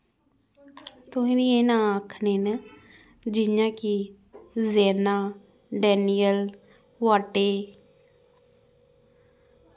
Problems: background sounds at intervals